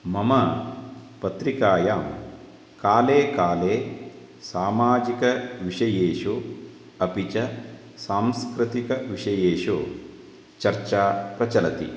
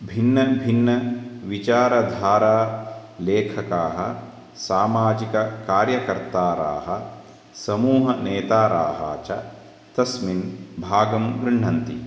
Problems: constant background noise